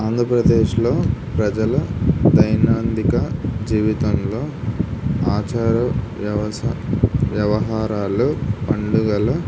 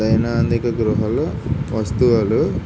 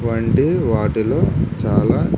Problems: constant background noise